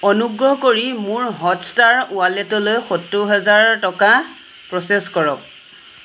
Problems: constant background noise